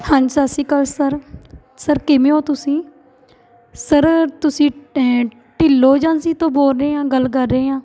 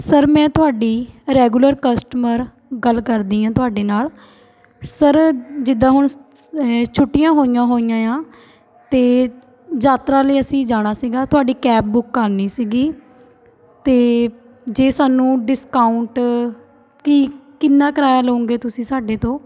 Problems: continuous background conversations